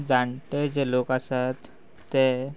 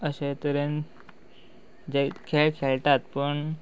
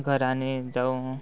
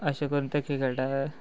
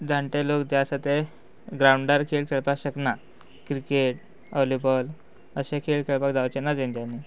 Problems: none marked